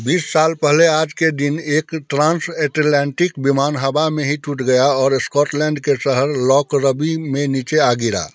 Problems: none marked